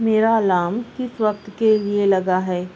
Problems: constant background noise